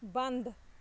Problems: constant background noise